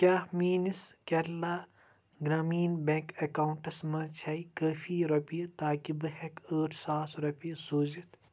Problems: constant background noise